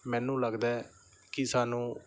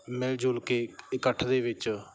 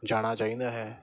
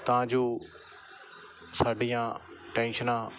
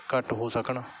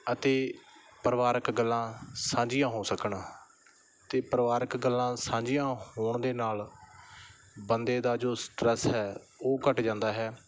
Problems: background sounds at intervals, background conversations at intervals